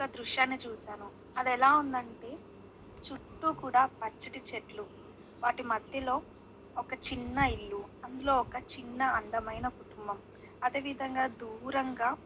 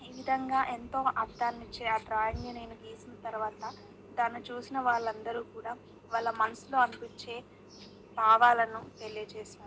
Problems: none marked